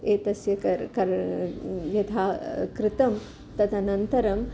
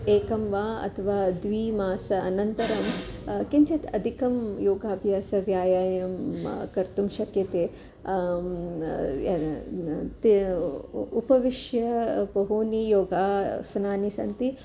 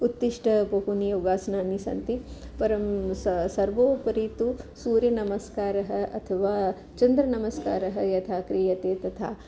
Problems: background sounds at intervals